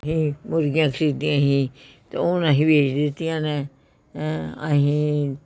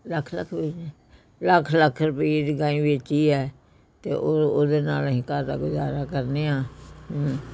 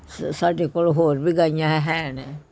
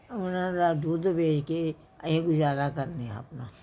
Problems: continuous background conversations